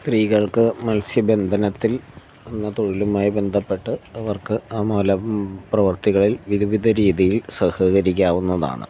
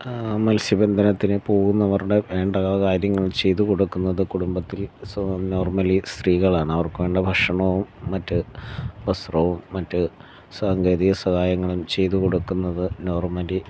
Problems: none marked